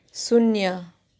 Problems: none marked